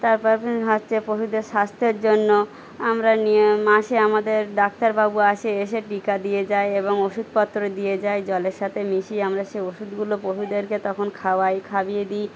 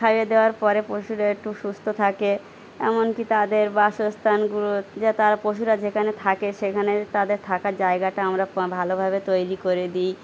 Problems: none marked